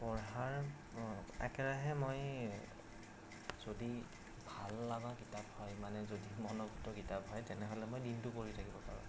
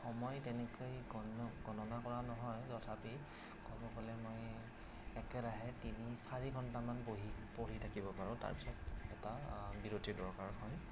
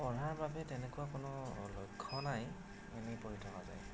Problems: constant background noise, low volume